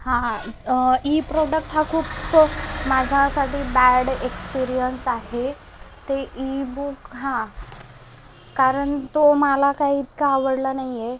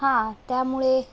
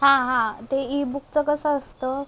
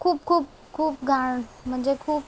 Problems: background sounds at intervals